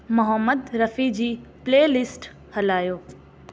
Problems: constant background noise, echo